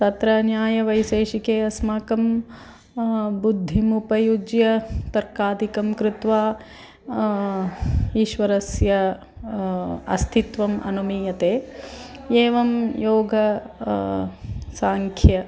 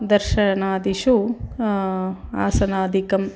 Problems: background sounds at intervals